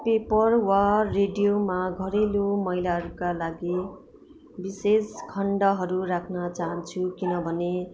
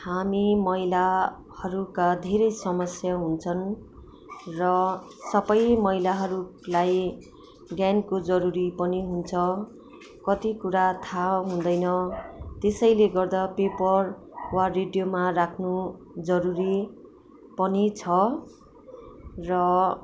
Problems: background sounds at intervals